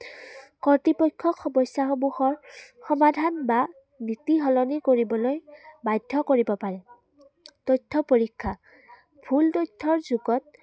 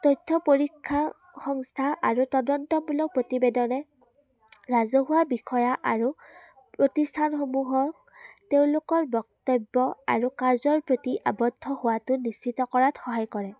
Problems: none marked